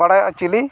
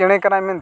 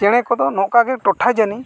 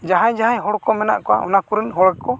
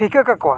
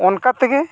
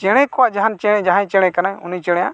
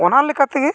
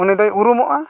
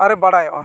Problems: background sounds at intervals, background conversations at intervals